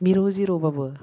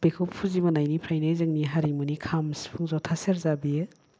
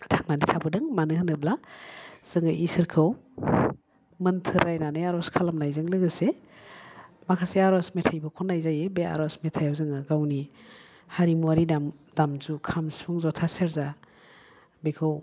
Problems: none marked